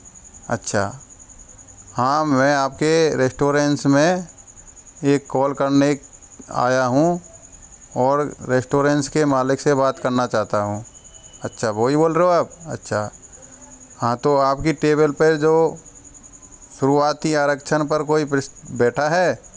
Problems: constant background noise, continuous background conversations